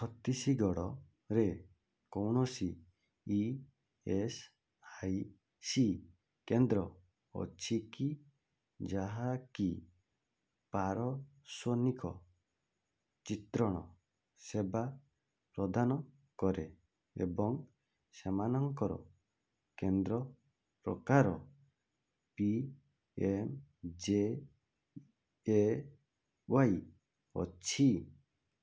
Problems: low volume